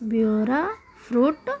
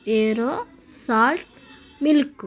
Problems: none marked